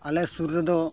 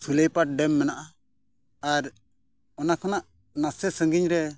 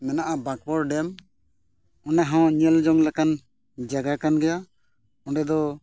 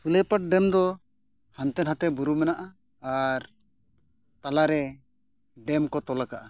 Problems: none marked